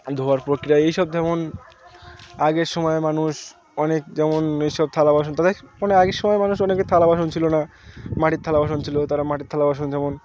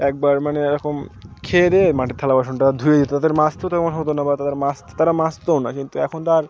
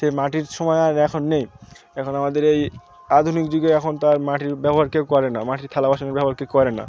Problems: constant background noise, continuous background conversations